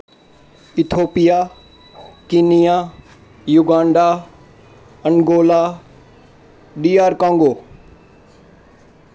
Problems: constant background noise